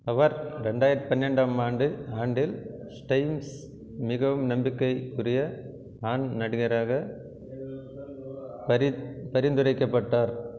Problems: constant background noise